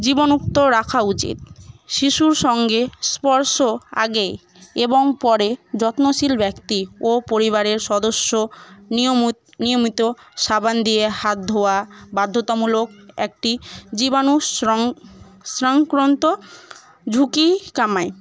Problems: none marked